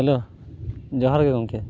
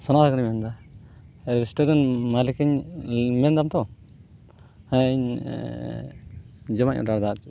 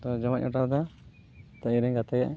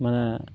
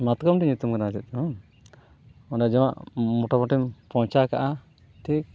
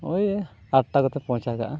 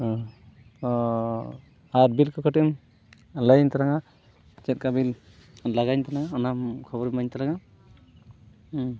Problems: background sounds at intervals, background conversations at intervals